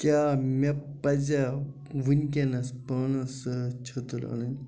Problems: background sounds at intervals